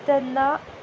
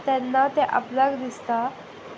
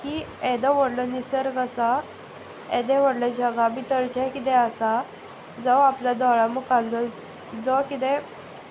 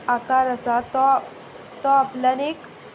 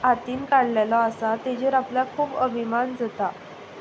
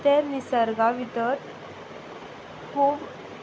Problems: background sounds at intervals